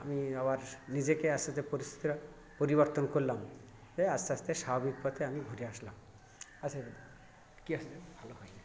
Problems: background sounds at intervals, continuous background conversations